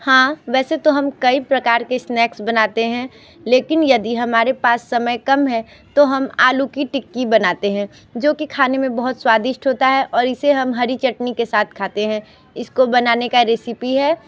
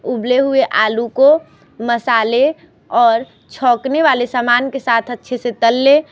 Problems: constant background noise, background conversations at intervals